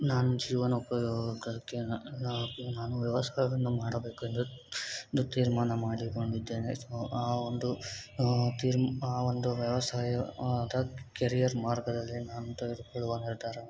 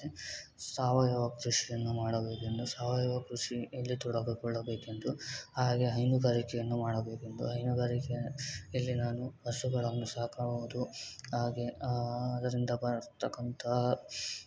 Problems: constant background noise